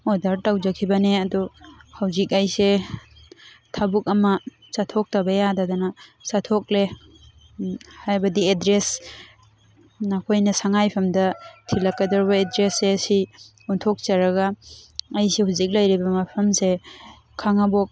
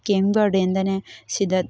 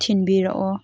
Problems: constant background noise